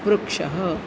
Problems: constant background noise